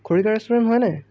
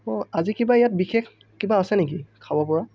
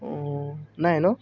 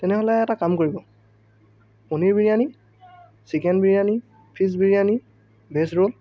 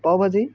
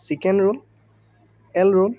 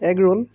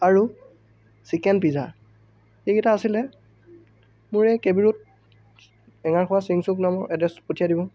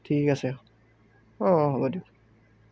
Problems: none marked